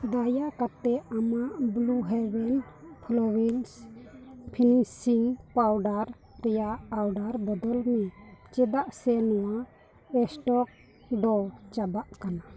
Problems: continuous background conversations